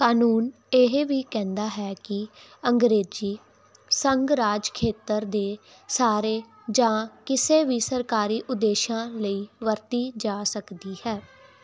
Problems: none marked